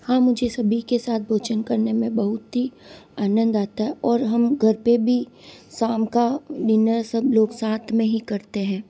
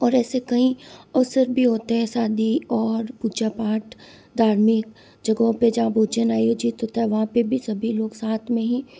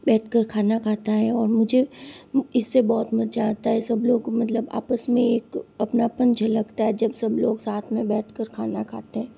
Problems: constant background noise